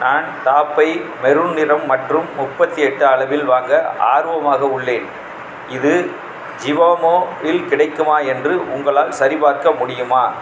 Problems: constant background noise